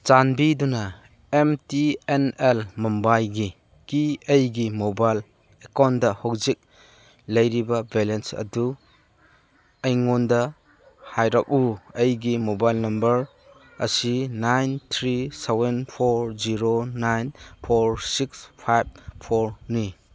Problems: none marked